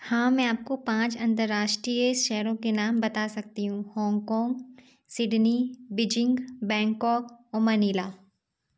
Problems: none marked